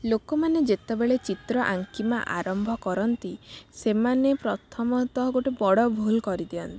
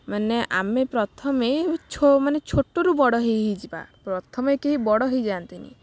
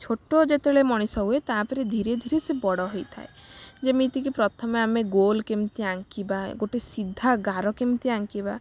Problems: none marked